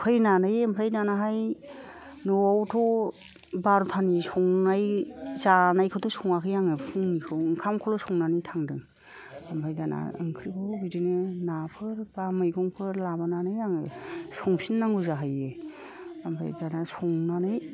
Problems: none marked